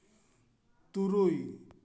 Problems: echo